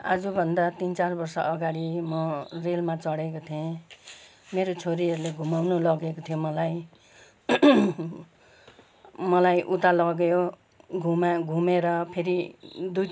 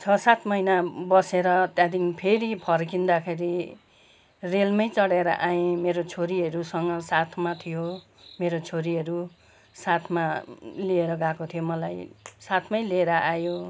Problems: none marked